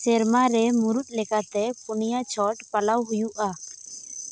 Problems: constant background noise